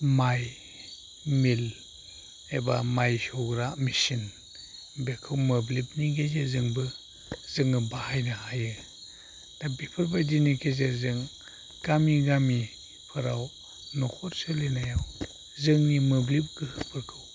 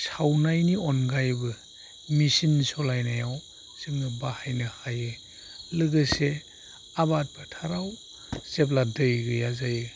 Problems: constant background noise